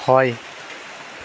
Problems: constant background noise